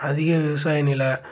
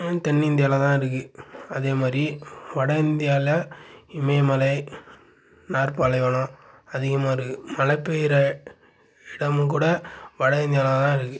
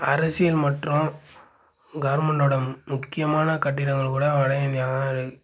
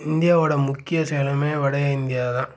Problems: none marked